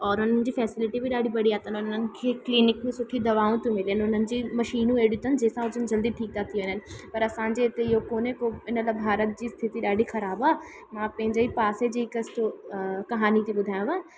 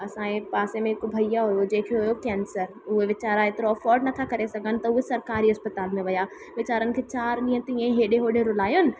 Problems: constant background noise, echo